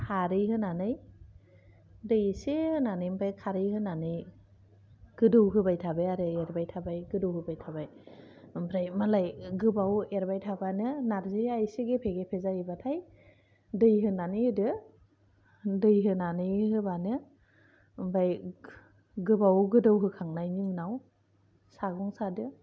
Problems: low volume